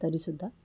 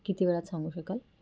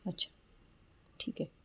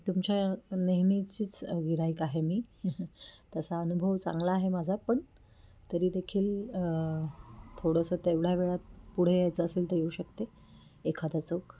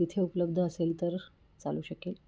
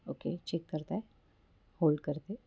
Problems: none marked